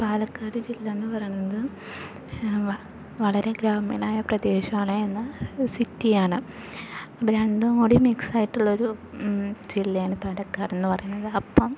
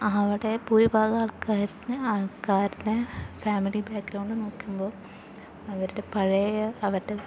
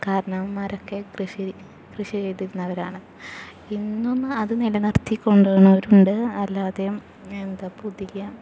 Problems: background sounds at intervals, low volume